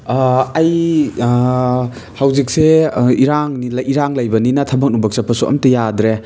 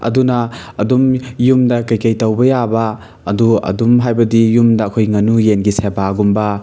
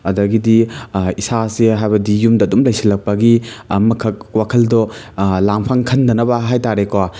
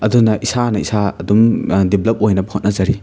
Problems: none marked